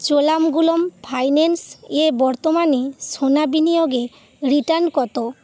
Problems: constant background noise